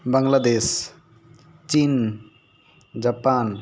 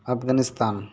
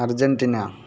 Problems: constant background noise